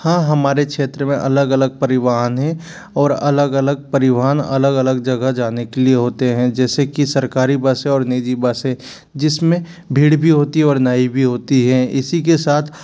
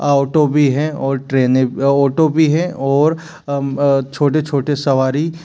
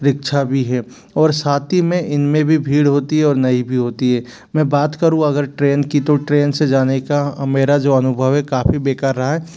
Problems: background sounds at intervals